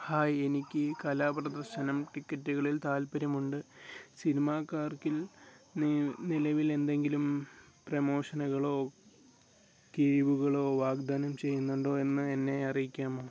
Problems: low volume